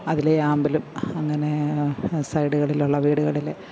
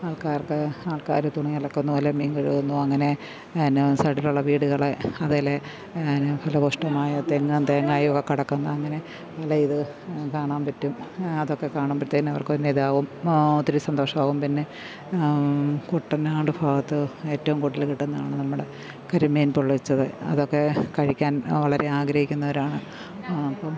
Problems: constant background noise, background conversations at intervals